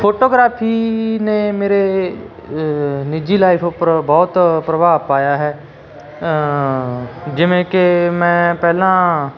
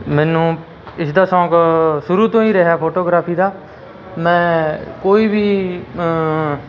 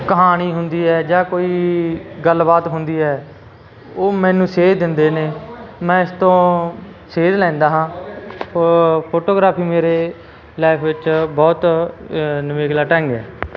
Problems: constant background noise, background conversations at intervals